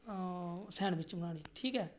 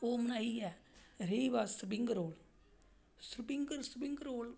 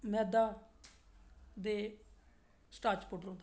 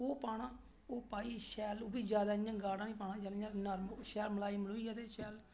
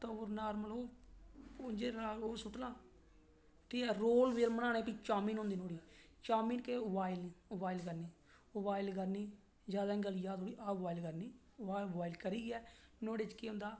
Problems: none marked